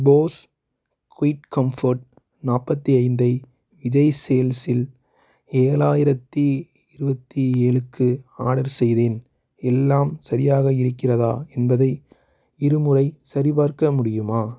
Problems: none marked